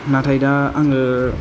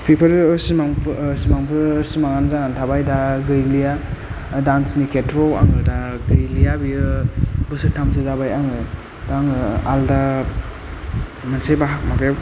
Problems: low volume